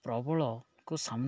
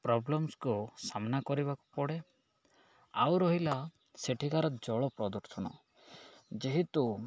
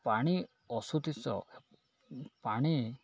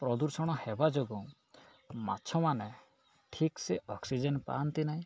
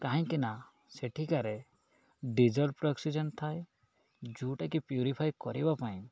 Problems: none marked